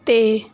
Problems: background sounds at intervals